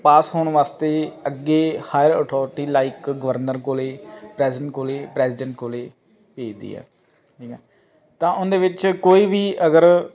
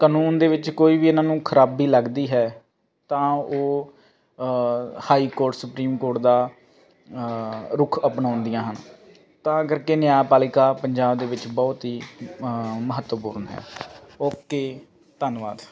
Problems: constant background noise